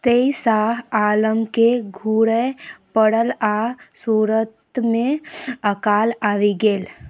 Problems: none marked